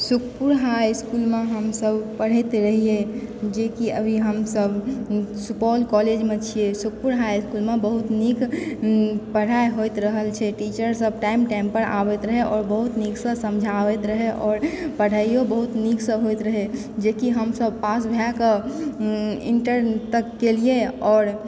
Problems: background sounds at intervals